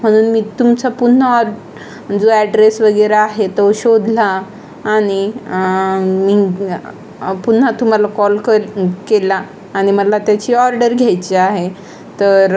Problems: constant background noise, continuous background conversations